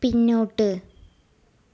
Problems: low volume